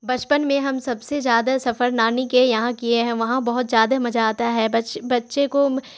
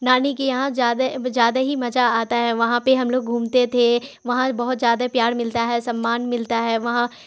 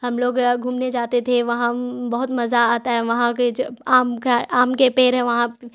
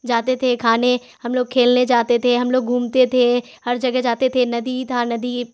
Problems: constant background noise